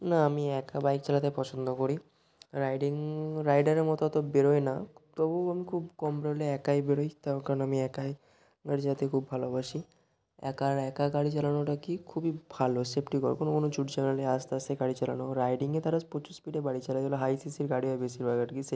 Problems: none marked